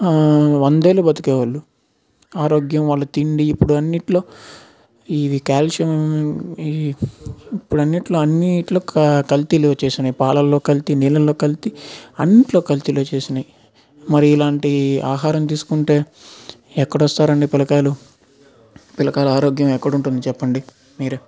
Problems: none marked